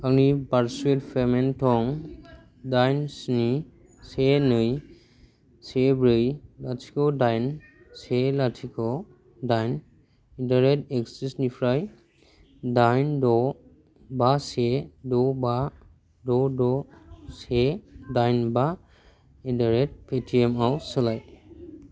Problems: none marked